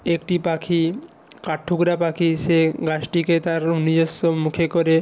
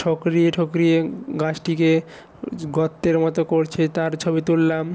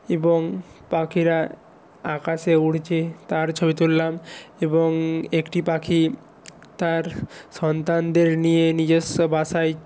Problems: background sounds at intervals